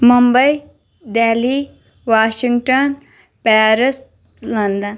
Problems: none marked